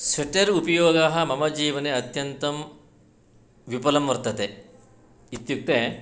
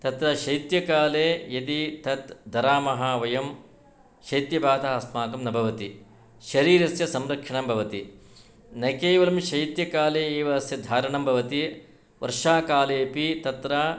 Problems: none marked